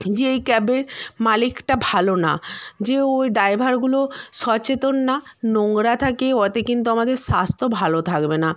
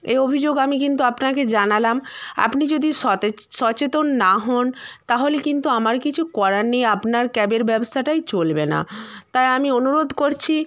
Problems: background sounds at intervals